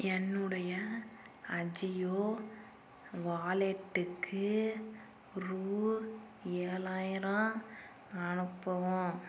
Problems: constant background noise